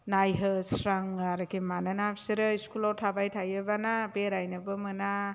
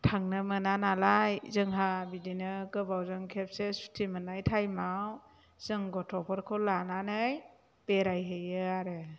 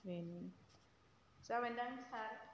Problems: low volume